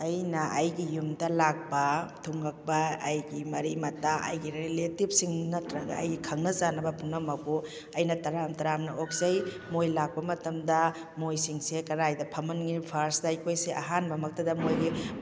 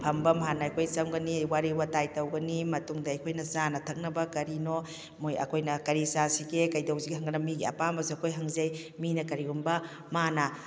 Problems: none marked